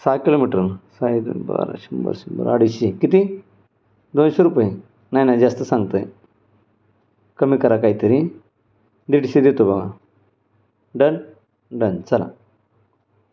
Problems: none marked